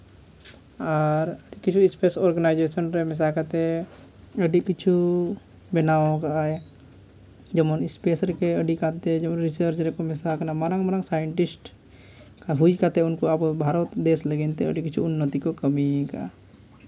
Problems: constant background noise, background conversations at intervals